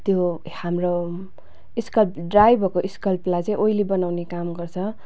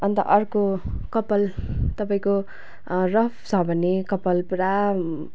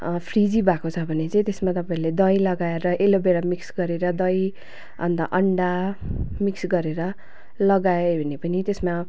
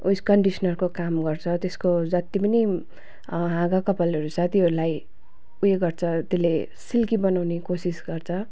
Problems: none marked